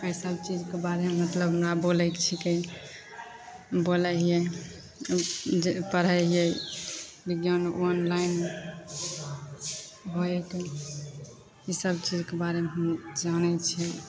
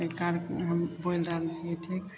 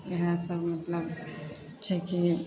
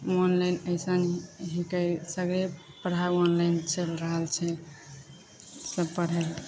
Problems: none marked